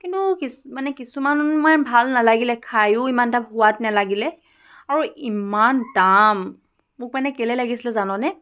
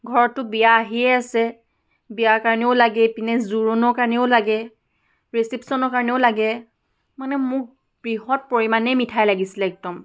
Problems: none marked